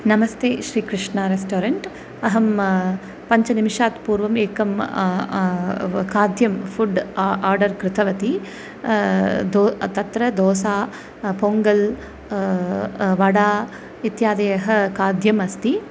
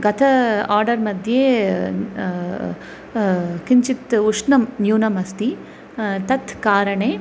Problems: constant background noise